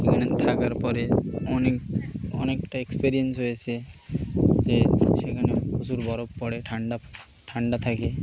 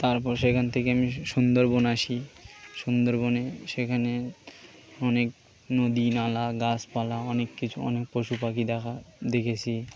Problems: constant background noise